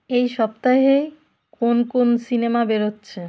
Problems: constant background noise